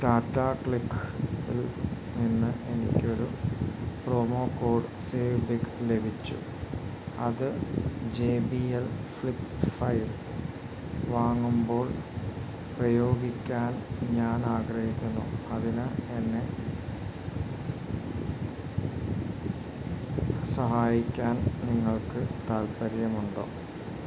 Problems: none marked